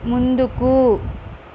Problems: none marked